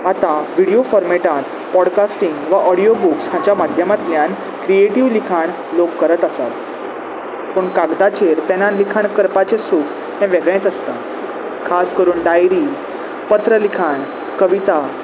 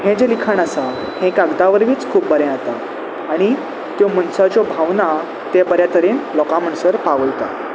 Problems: none marked